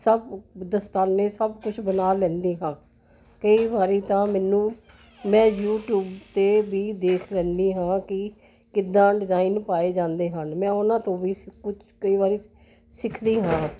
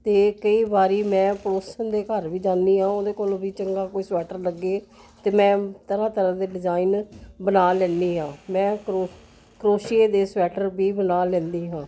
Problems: constant background noise